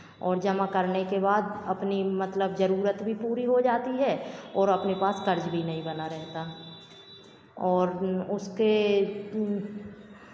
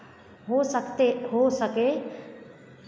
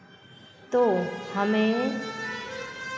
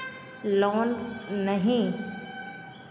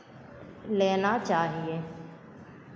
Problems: none marked